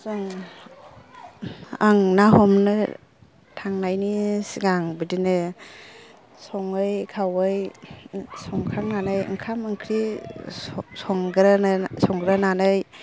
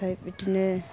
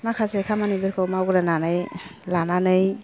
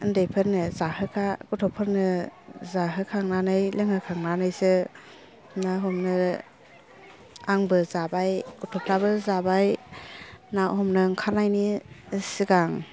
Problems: low volume